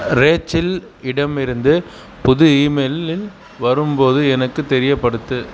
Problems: background sounds at intervals